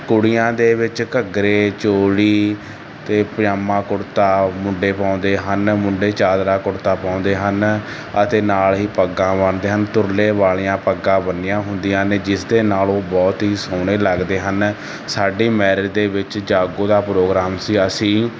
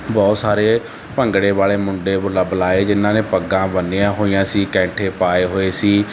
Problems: constant background noise